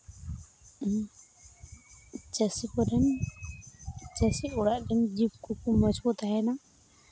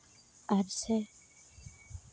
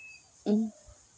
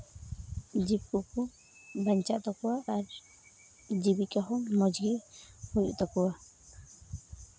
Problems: none marked